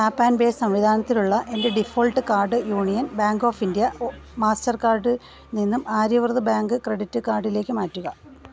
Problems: background sounds at intervals